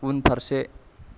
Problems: background sounds at intervals